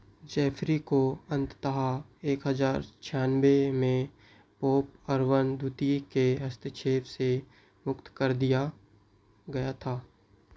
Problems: background sounds at intervals